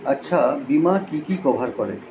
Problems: constant background noise